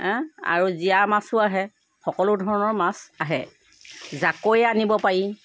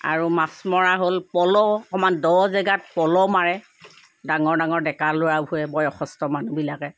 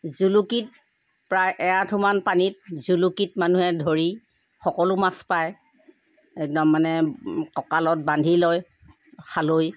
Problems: none marked